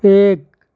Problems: constant background noise, low volume